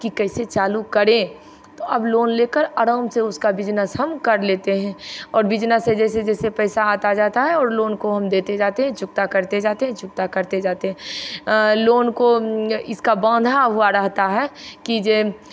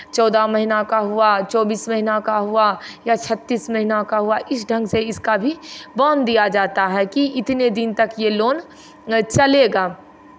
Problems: constant background noise